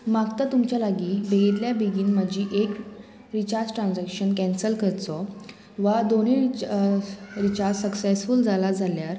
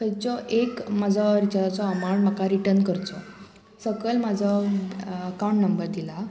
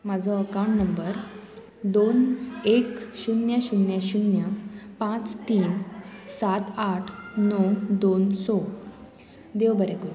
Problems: none marked